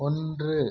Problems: low volume